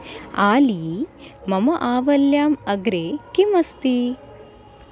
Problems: constant background noise